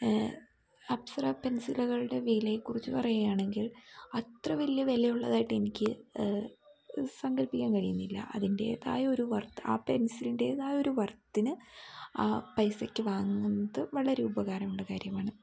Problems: background sounds at intervals